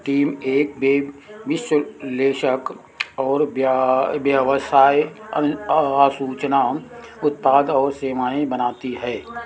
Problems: constant background noise